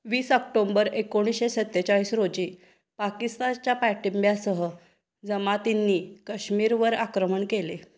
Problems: constant background noise